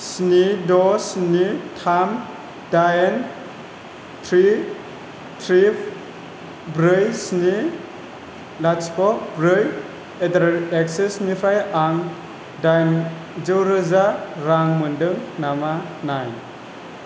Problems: constant background noise